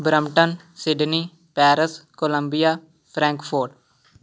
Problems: none marked